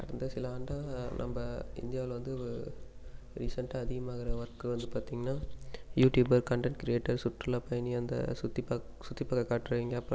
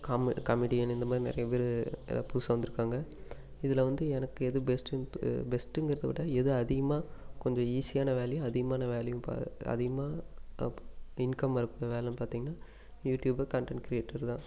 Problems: constant background noise